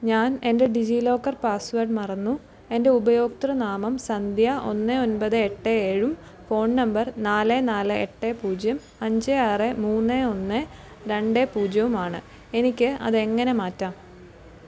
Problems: constant background noise